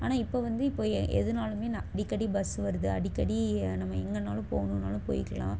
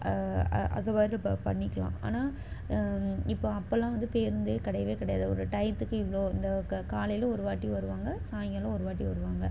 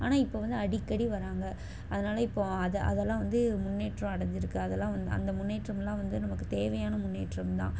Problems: background sounds at intervals